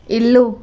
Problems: constant background noise